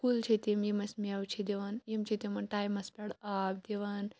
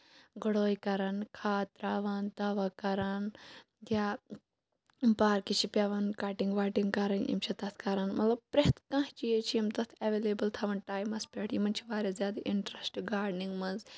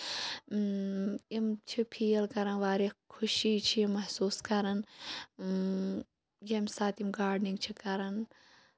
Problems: none marked